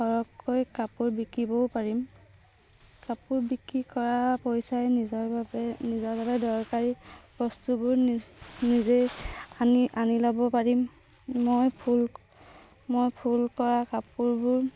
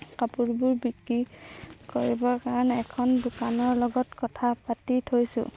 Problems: background sounds at intervals